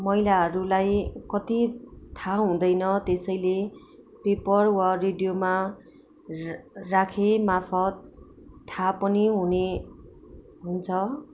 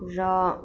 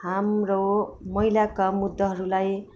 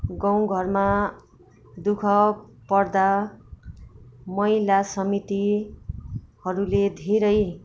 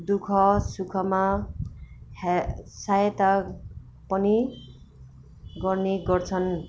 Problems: background sounds at intervals